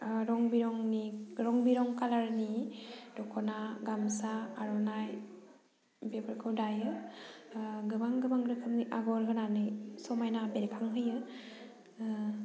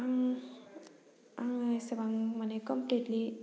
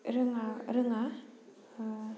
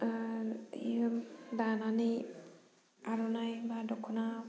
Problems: none marked